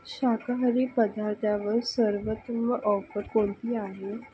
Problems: none marked